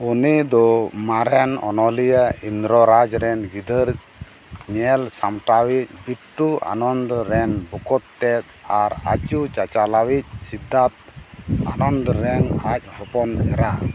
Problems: background sounds at intervals